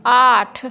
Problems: none marked